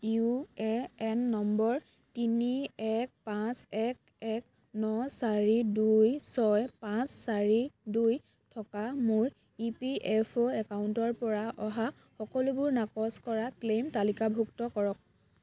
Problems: constant background noise